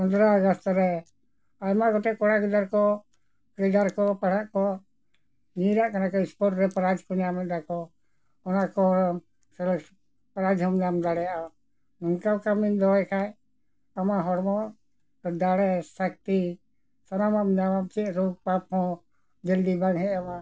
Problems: none marked